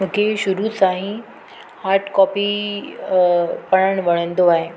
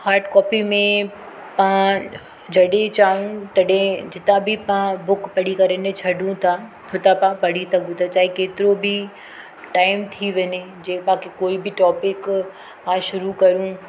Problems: constant background noise